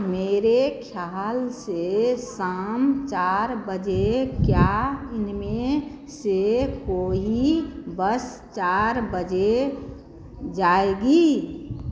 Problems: none marked